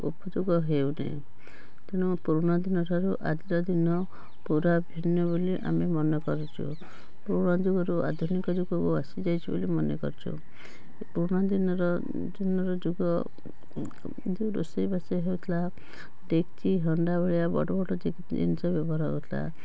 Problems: constant background noise